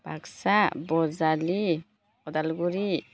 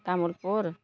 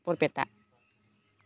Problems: none marked